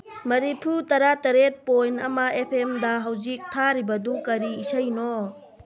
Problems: background conversations at intervals